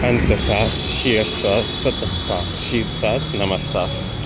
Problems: constant background noise